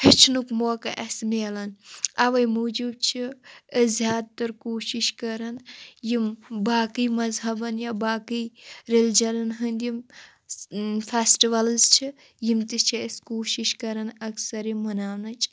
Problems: constant background noise